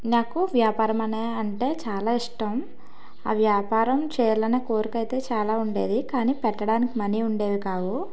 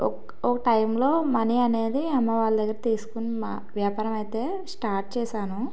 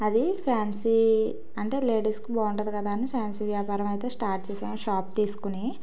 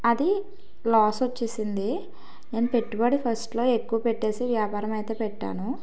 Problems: none marked